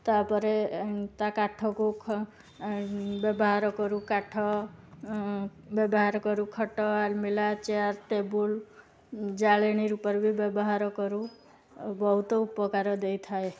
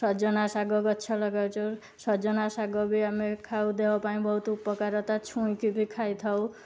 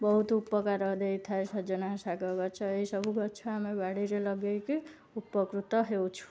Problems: none marked